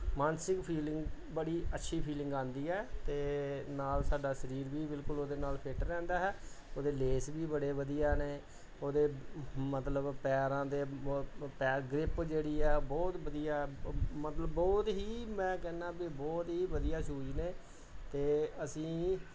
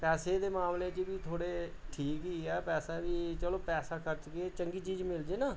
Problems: background conversations at intervals